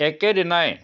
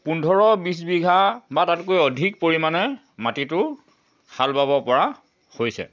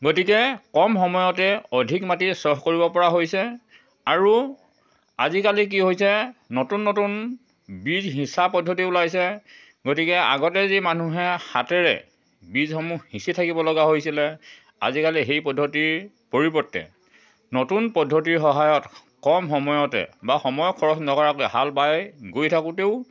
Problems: constant background noise